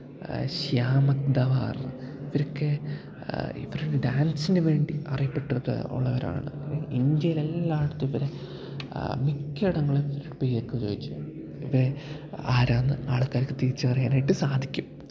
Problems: background sounds at intervals, low volume